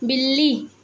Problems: background sounds at intervals